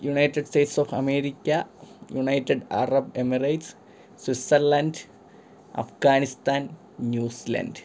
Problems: background sounds at intervals